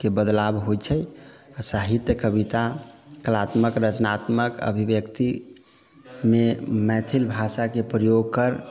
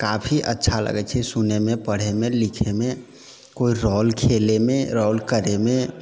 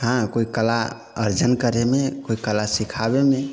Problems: background sounds at intervals